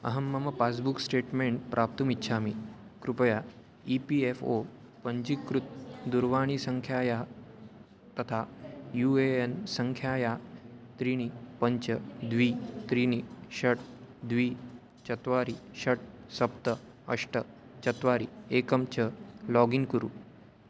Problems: constant background noise, background conversations at intervals